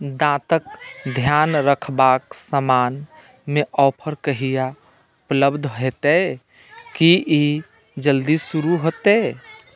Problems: none marked